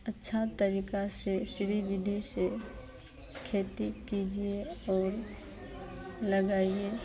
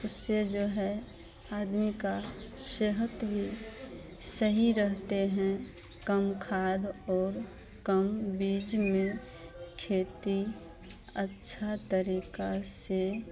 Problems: none marked